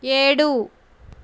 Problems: constant background noise